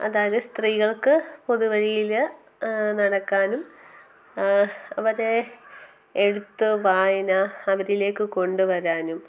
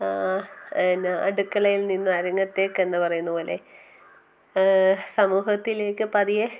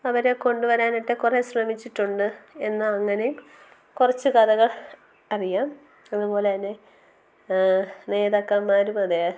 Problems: constant background noise, low volume